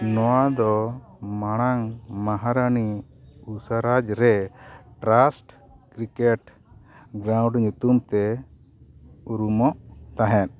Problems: background sounds at intervals